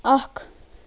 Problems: constant background noise